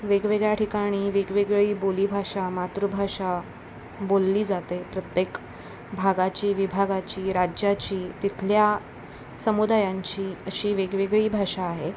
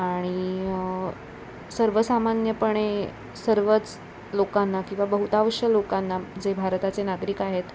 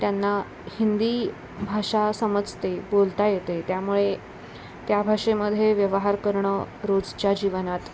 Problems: constant background noise